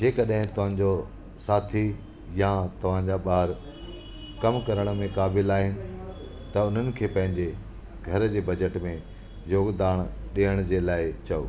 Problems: constant background noise, echo